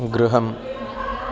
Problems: background sounds at intervals